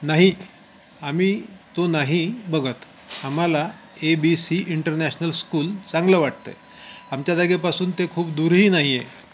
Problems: constant background noise